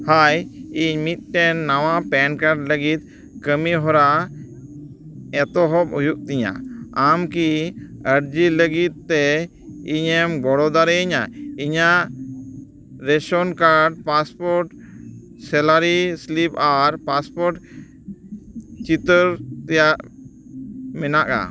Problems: background sounds at intervals